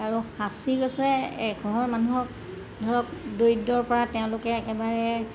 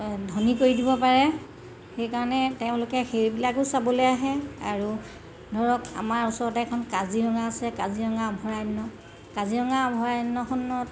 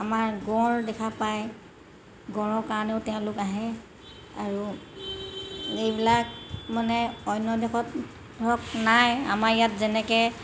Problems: none marked